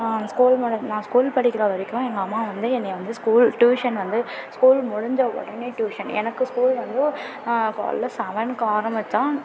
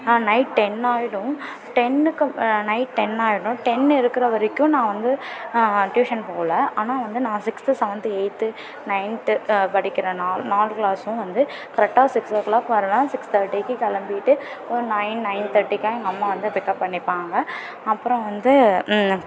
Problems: continuous background conversations